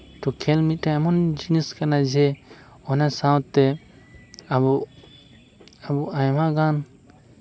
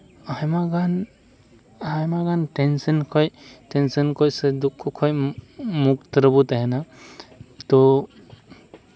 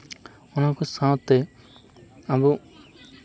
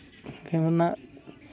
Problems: background sounds at intervals